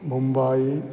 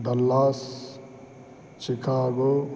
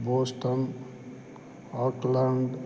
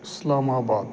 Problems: none marked